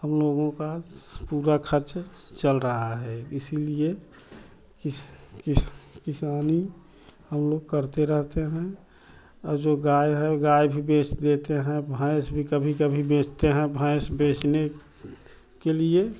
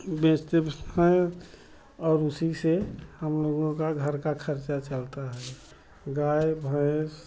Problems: constant background noise